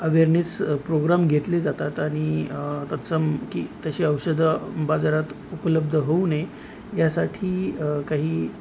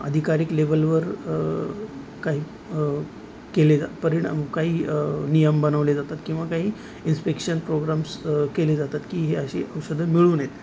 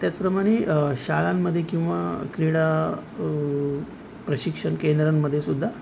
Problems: none marked